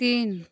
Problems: none marked